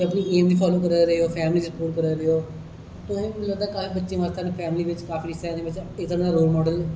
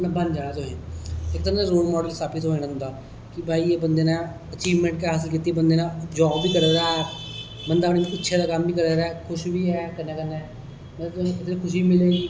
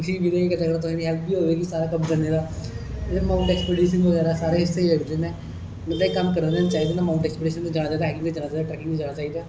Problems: echo